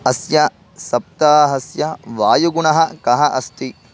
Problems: constant background noise